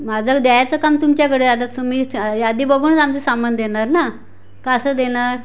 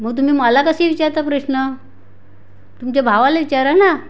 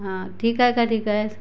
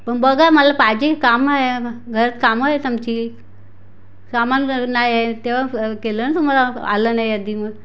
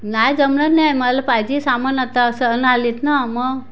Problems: background sounds at intervals